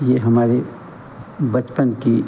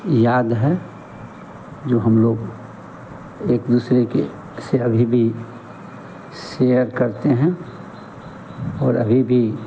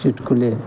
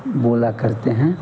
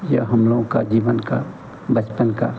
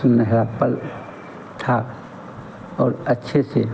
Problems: none marked